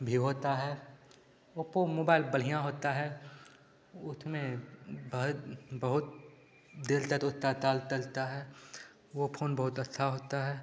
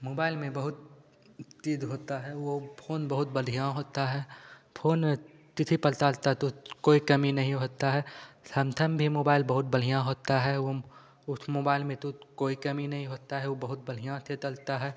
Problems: constant background noise, echo